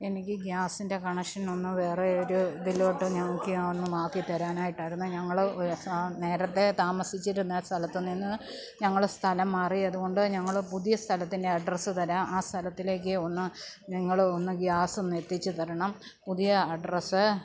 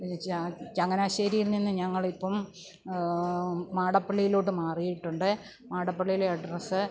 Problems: background sounds at intervals, low volume